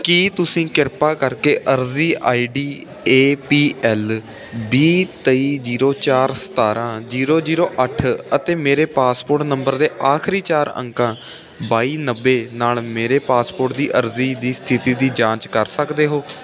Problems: constant background noise